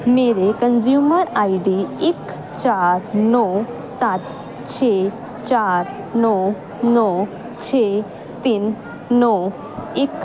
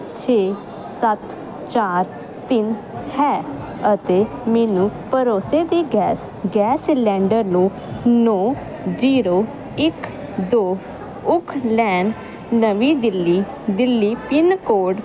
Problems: constant background noise